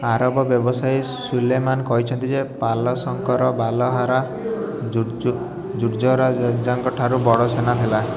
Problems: constant background noise